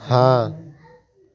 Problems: constant background noise, continuous background conversations